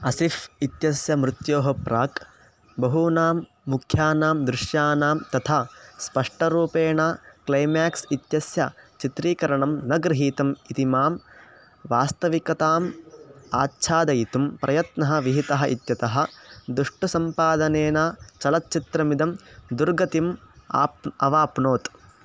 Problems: constant background noise